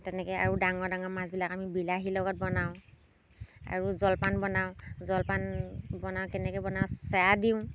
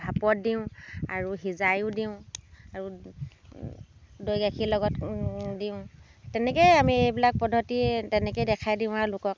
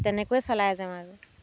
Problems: background sounds at intervals